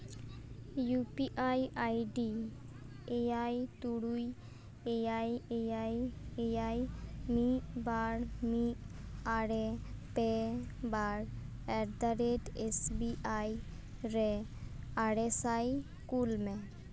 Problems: background sounds at intervals